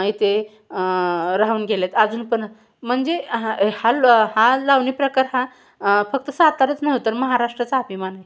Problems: background sounds at intervals